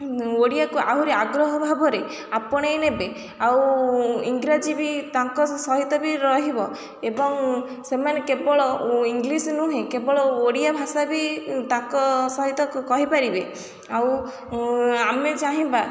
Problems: none marked